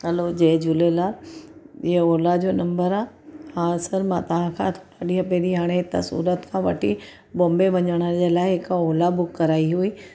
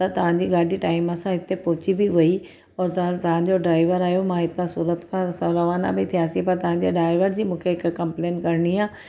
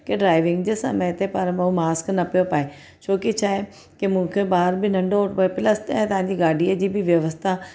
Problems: background sounds at intervals